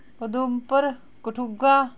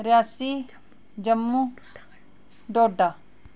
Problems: background sounds at intervals, background conversations at intervals